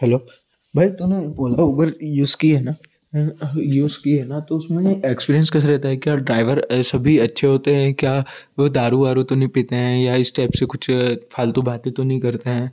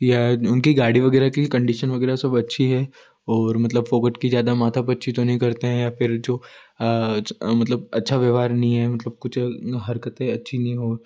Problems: constant background noise